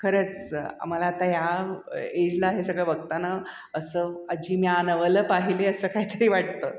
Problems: background sounds at intervals, echo